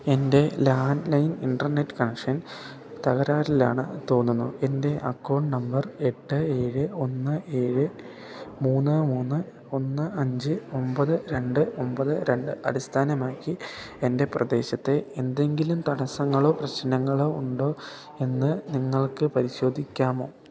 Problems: background sounds at intervals